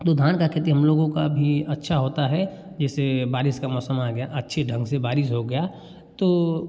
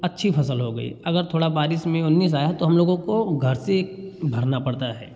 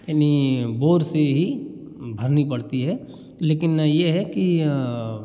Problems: background sounds at intervals